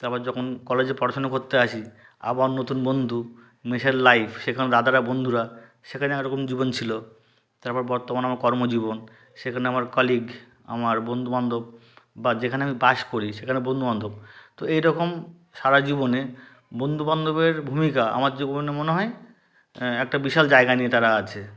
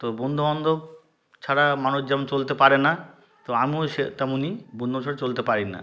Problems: background sounds at intervals